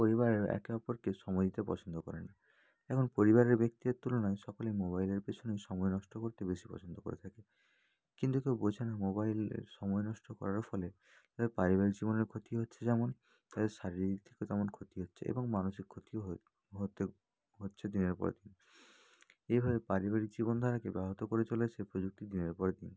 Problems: none marked